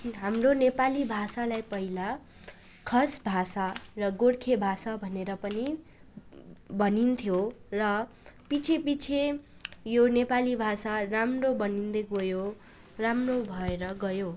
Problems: none marked